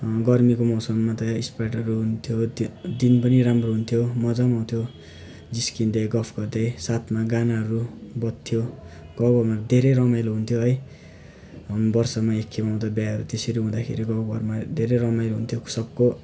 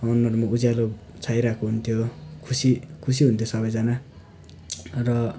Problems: background sounds at intervals